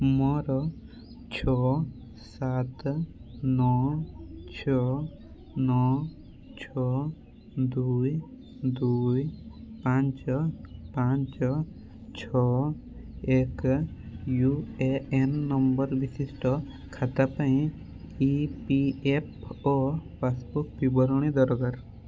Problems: constant background noise